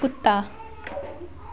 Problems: constant background noise, continuous background conversations